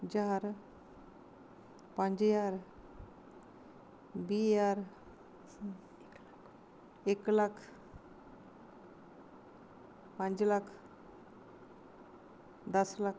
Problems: constant background noise